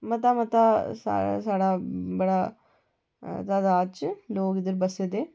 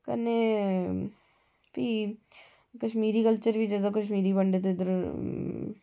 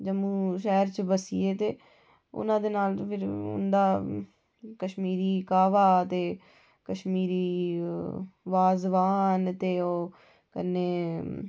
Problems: none marked